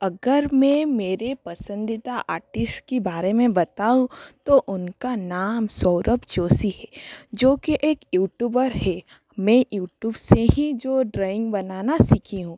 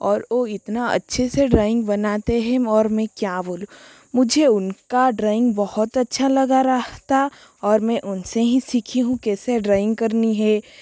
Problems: constant background noise